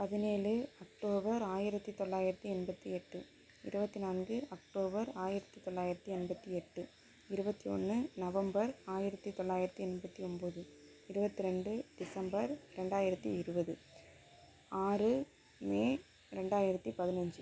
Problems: low volume